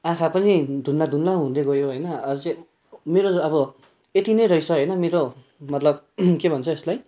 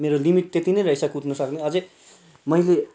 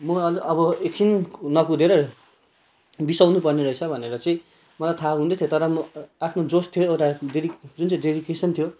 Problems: background sounds at intervals